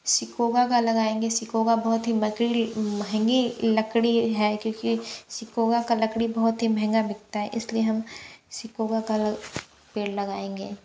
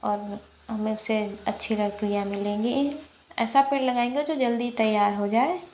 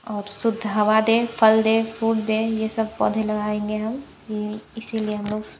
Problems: none marked